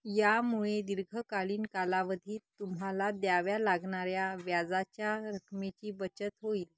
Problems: none marked